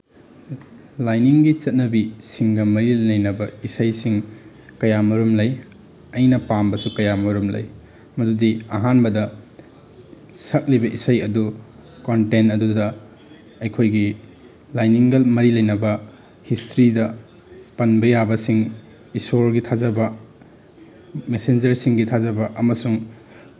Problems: background sounds at intervals